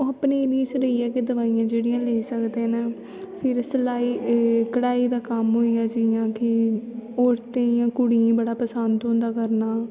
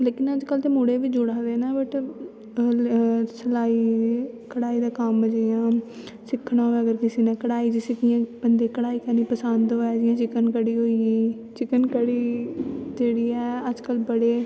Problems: constant background noise, echo